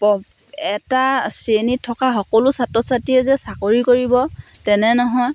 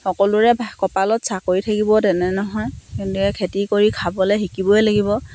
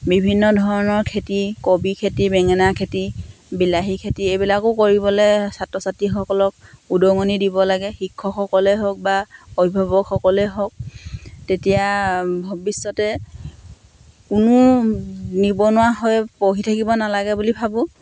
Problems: none marked